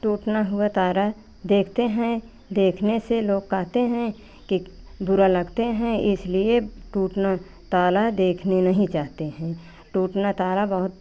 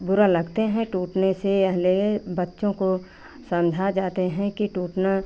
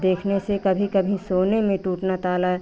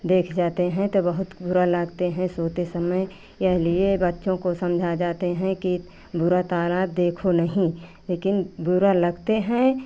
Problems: none marked